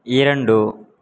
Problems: constant background noise